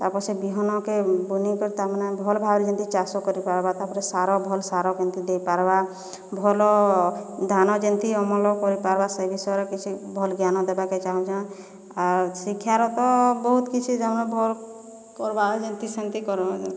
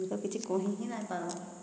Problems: background conversations at intervals